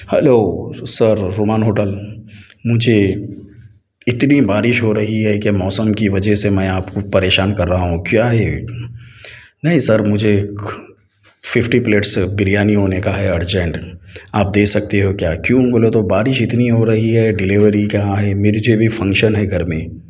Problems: none marked